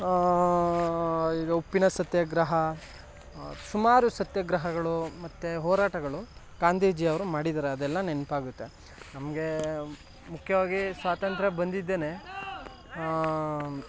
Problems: background sounds at intervals